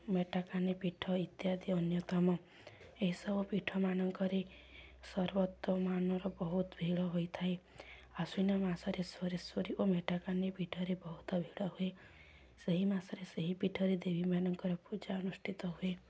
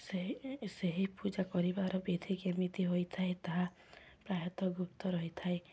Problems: none marked